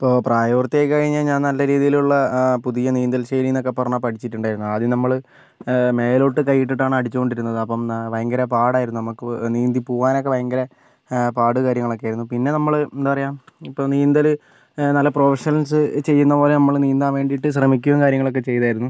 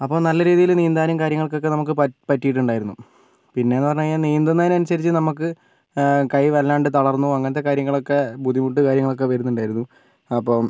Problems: none marked